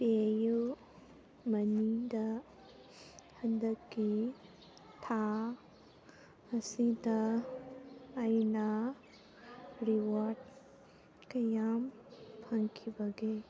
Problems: background sounds at intervals